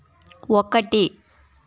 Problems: constant background noise, background conversations at intervals